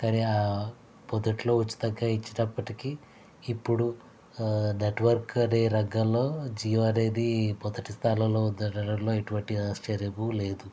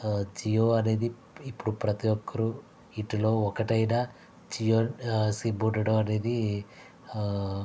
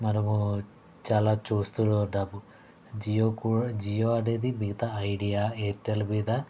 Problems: constant background noise